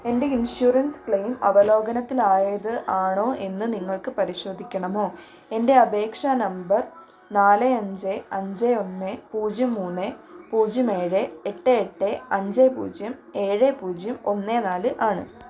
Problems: constant background noise